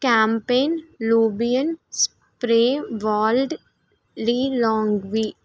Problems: none marked